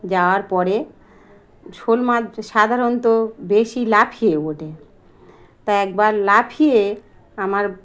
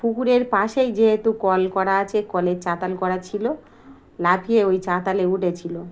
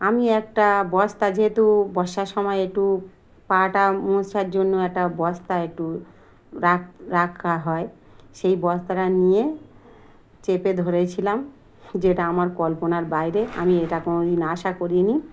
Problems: constant background noise